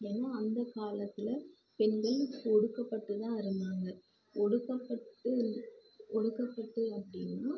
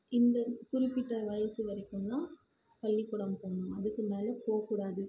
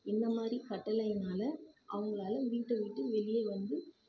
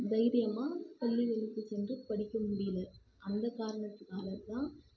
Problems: constant background noise, low volume